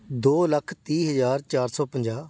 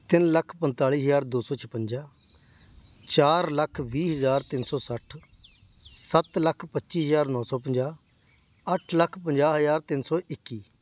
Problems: none marked